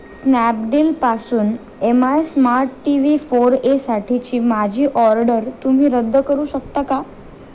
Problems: constant background noise